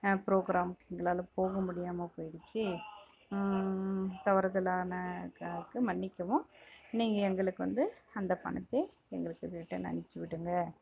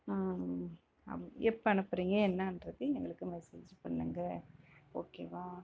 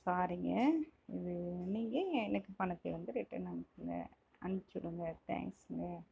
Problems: background conversations at intervals